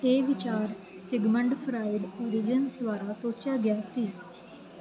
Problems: none marked